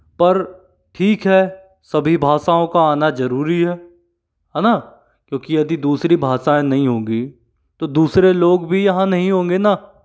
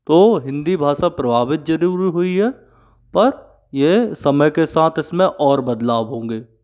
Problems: background sounds at intervals